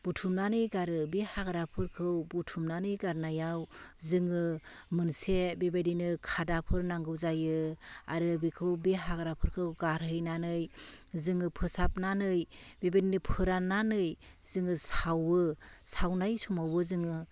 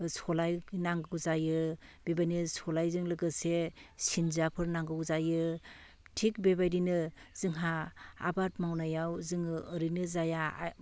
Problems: constant background noise